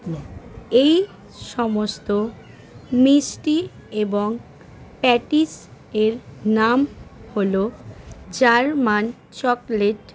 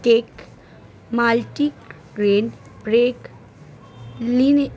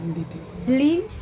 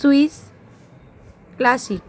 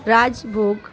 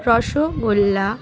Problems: constant background noise, continuous background conversations